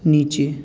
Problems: constant background noise